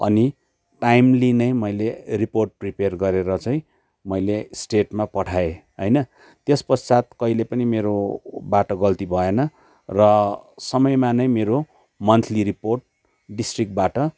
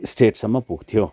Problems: background sounds at intervals